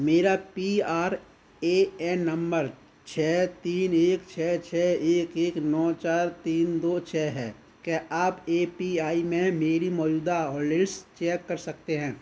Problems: constant background noise